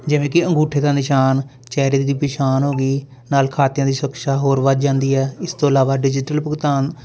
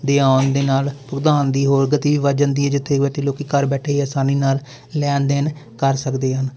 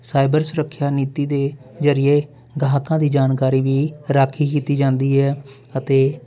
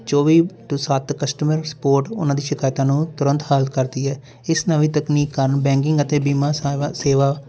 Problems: none marked